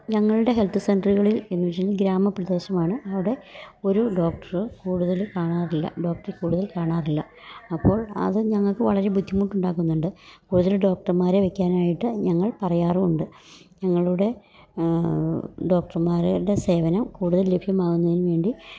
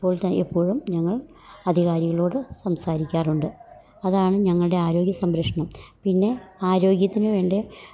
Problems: none marked